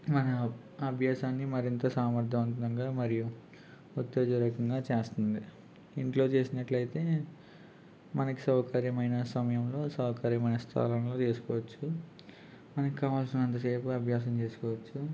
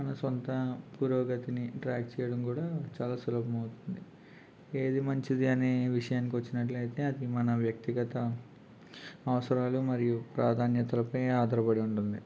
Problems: none marked